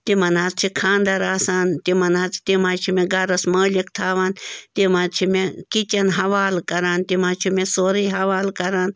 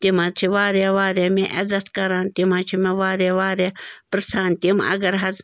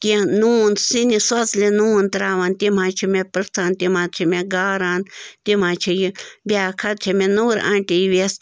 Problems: constant background noise